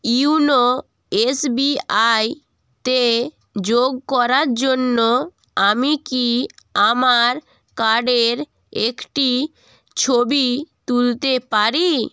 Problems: none marked